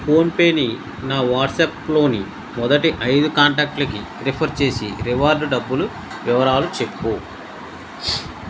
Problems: constant background noise